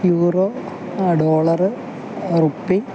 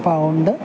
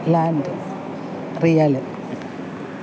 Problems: none marked